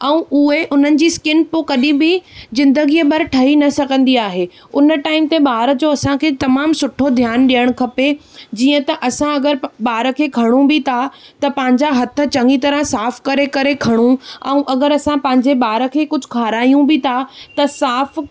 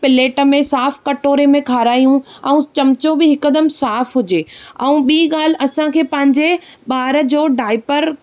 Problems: none marked